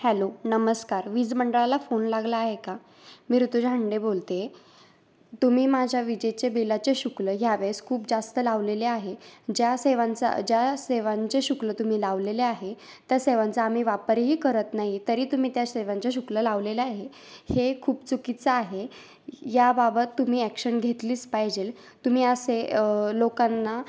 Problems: background sounds at intervals